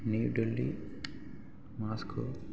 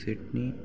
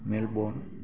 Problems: none marked